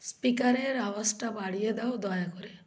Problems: constant background noise